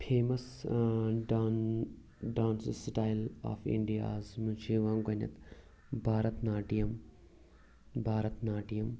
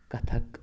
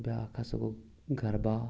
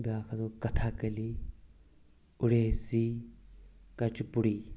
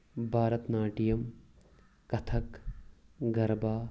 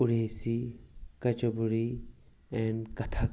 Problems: none marked